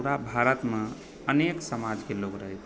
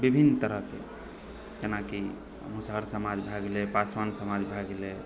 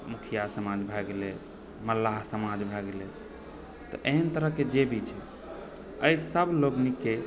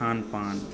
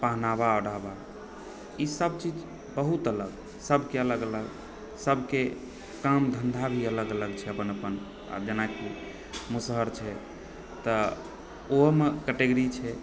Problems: background sounds at intervals, background conversations at intervals